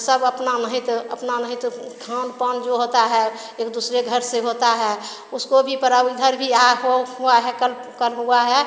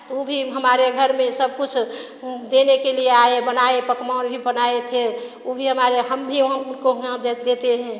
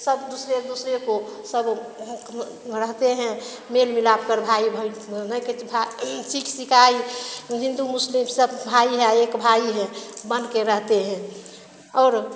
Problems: none marked